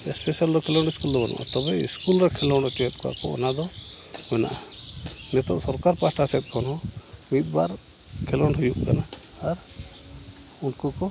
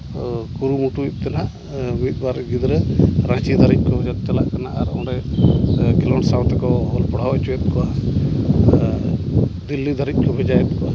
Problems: background sounds at intervals